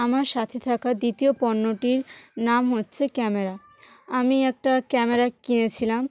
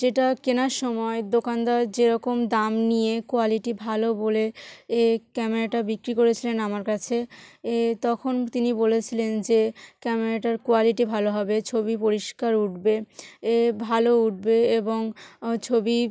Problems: none marked